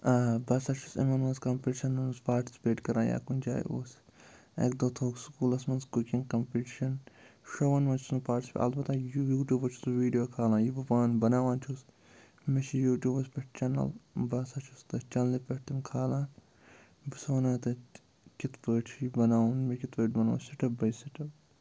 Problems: background sounds at intervals, low volume